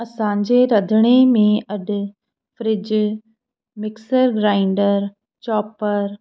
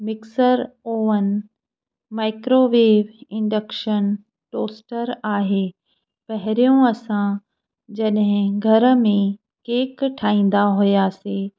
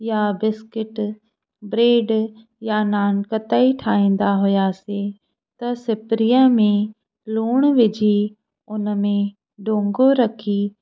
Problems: none marked